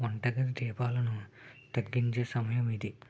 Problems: low volume